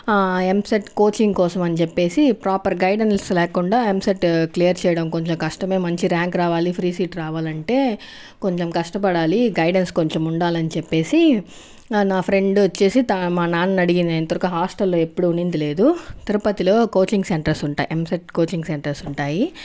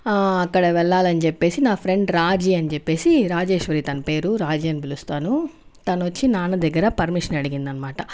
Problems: background conversations at intervals